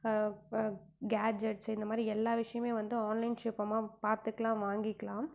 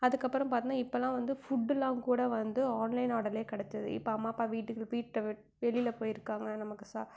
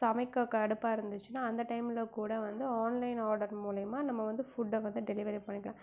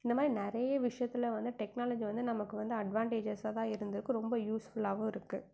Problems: background sounds at intervals